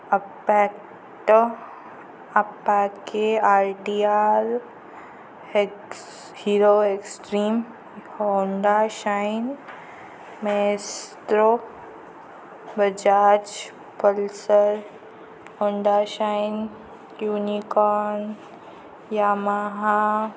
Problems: constant background noise